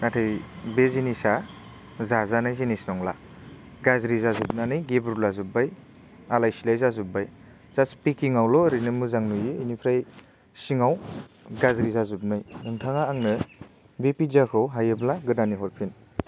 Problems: none marked